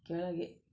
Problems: low volume